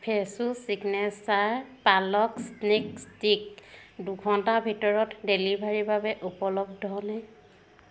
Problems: constant background noise